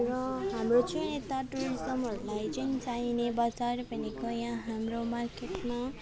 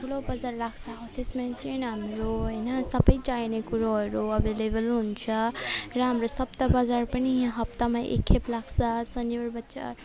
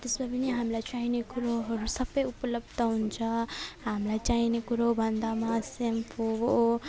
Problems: background sounds at intervals